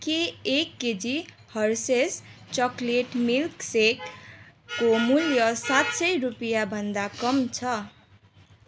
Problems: constant background noise